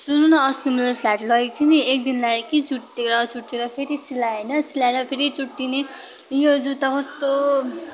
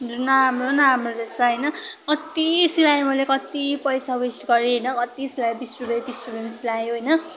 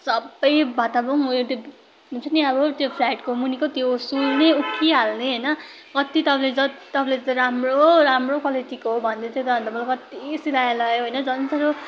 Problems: continuous background conversations